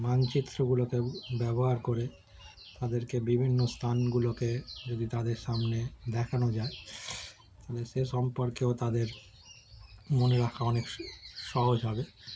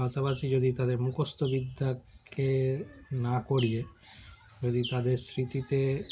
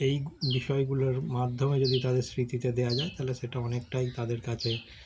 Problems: none marked